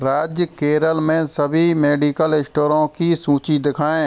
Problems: none marked